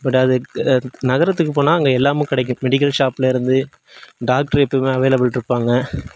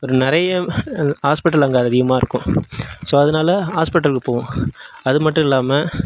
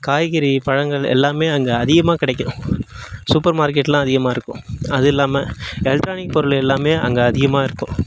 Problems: background sounds at intervals